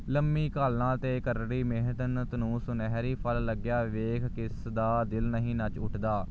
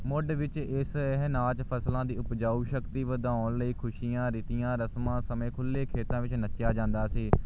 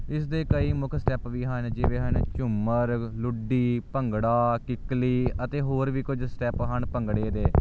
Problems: none marked